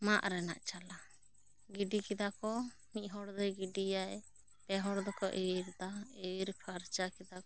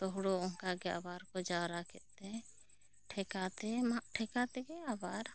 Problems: none marked